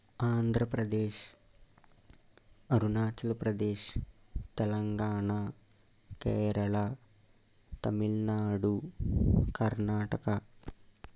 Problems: constant background noise, low volume